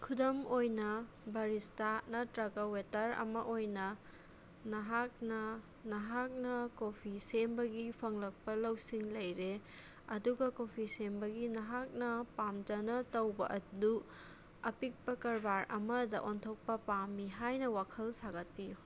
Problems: none marked